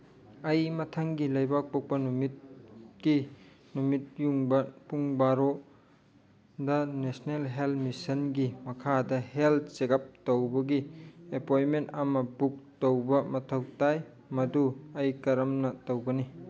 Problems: background sounds at intervals